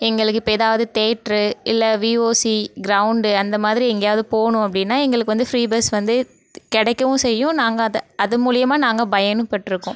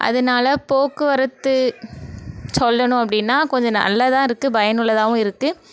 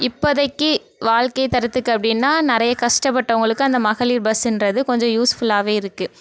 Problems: none marked